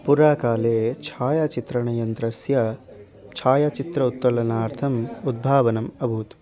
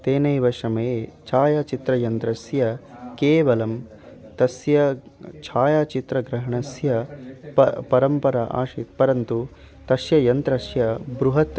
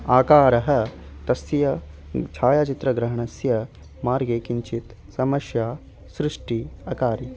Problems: constant background noise, continuous background conversations